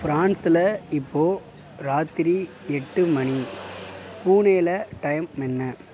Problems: none marked